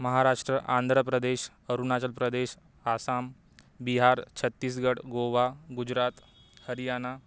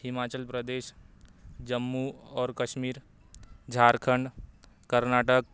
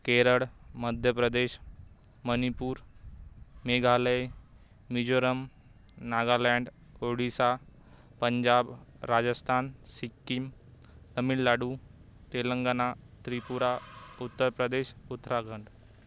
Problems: none marked